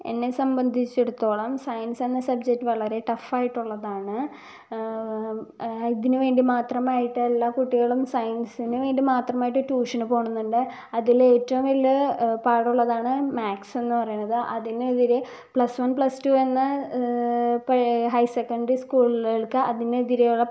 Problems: low volume